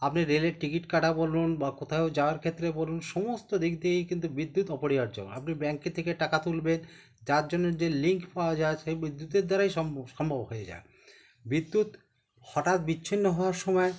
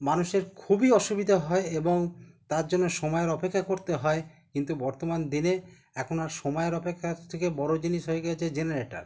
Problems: background conversations at intervals